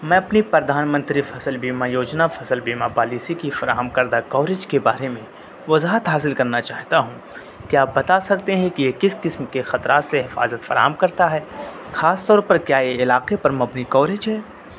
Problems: constant background noise